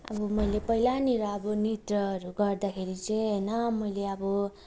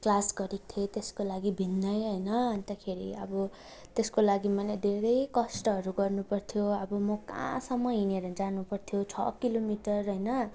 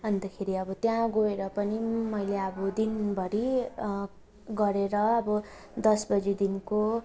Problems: none marked